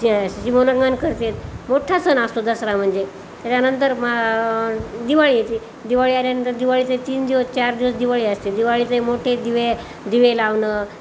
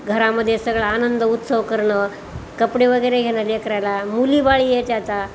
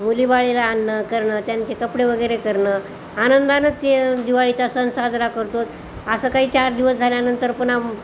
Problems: none marked